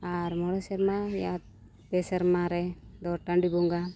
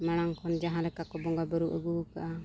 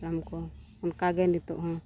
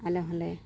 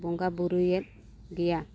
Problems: constant background noise